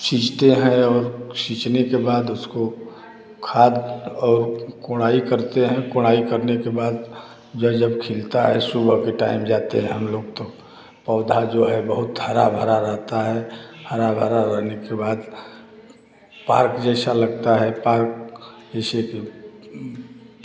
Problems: none marked